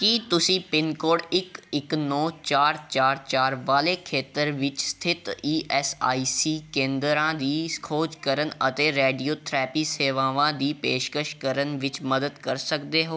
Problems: background conversations at intervals